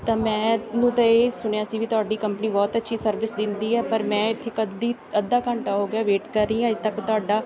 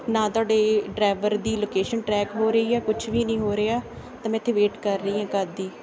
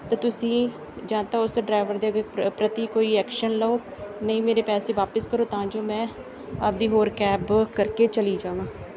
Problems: background sounds at intervals, background conversations at intervals